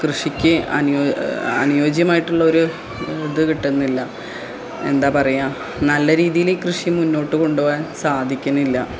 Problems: low volume